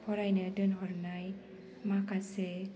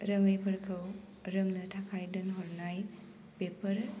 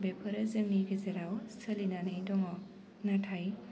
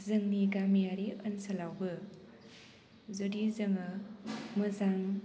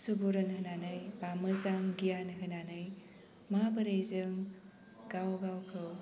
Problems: low volume